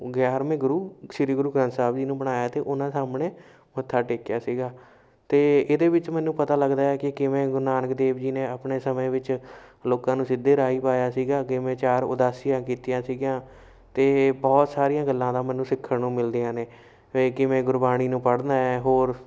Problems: none marked